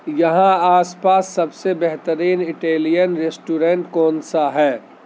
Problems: constant background noise